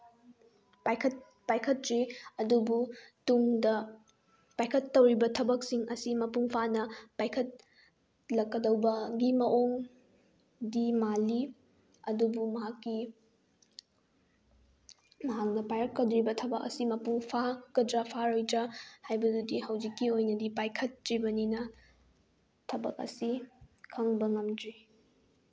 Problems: none marked